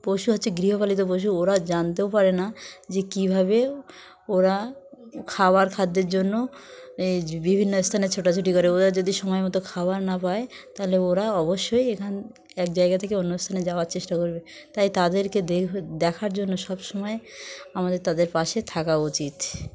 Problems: none marked